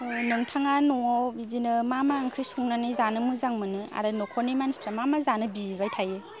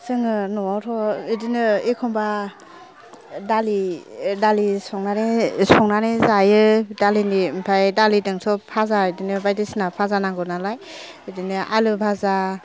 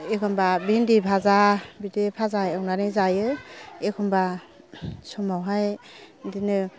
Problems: none marked